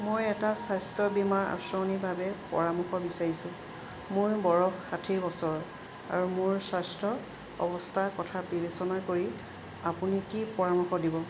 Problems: none marked